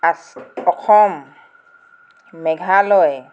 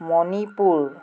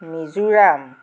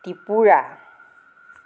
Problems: none marked